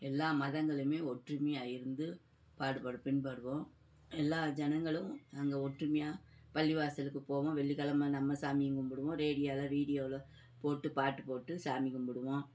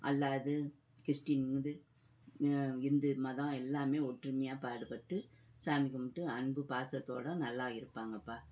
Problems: background conversations at intervals